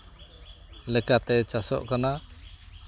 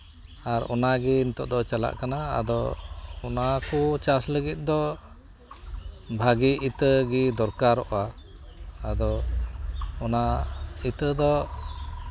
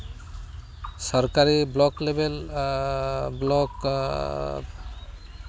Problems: constant background noise, continuous background conversations